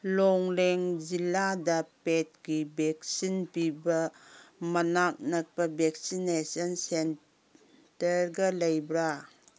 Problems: none marked